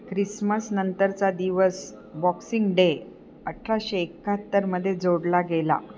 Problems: none marked